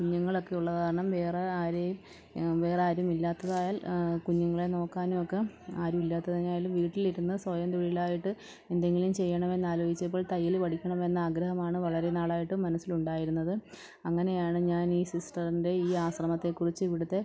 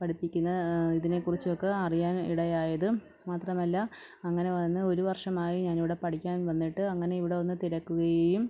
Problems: low volume